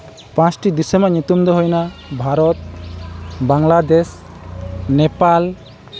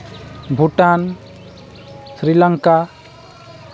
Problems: continuous background conversations